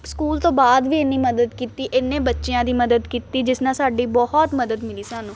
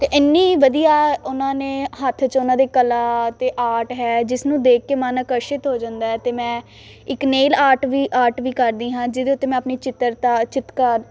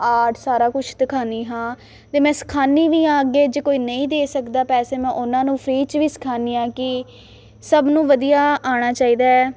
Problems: constant background noise